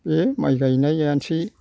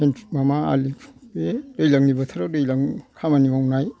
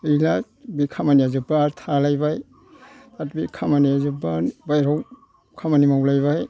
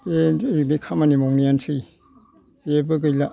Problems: background sounds at intervals